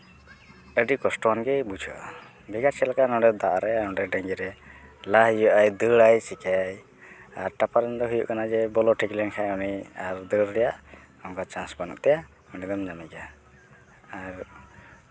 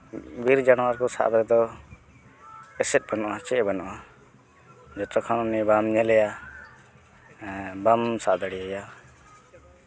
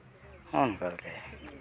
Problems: background sounds at intervals